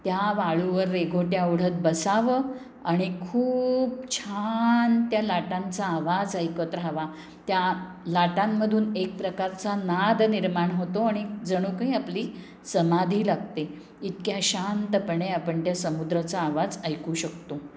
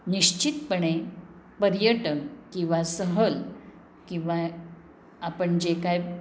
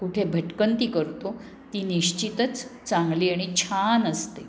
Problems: constant background noise